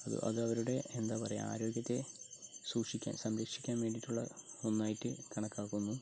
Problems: low volume